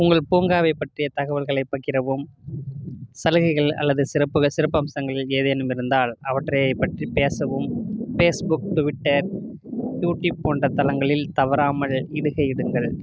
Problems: constant background noise